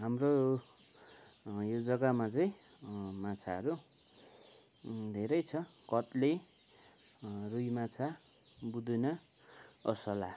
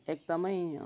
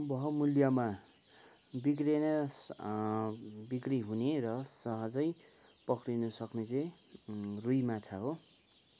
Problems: constant background noise